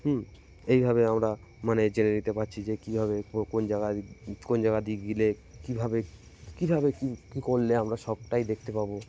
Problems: constant background noise